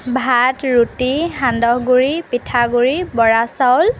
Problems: background sounds at intervals